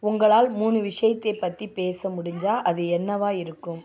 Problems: background conversations at intervals